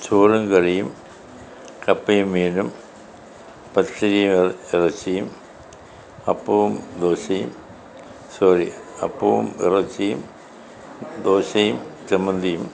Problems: none marked